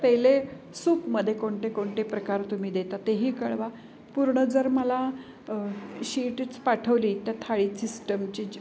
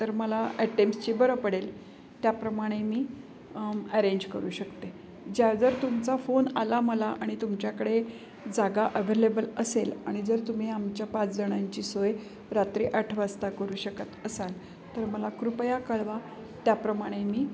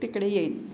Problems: none marked